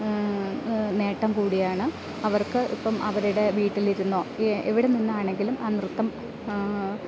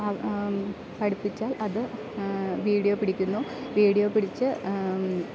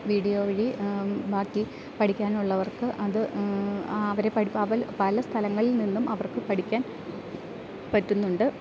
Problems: none marked